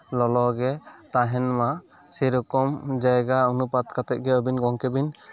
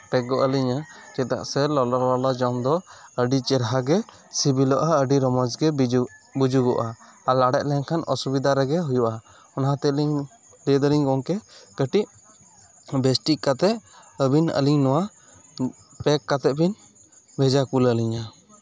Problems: constant background noise, background conversations at intervals